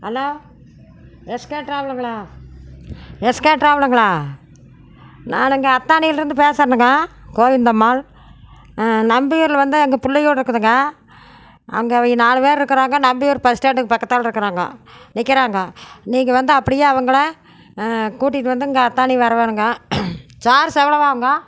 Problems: none marked